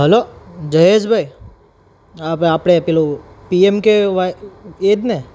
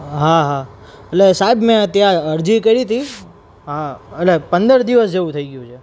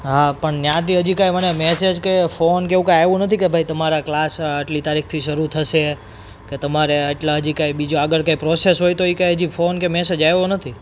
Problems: none marked